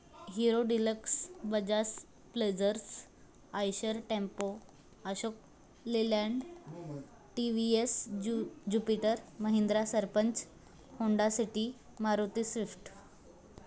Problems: constant background noise, continuous background conversations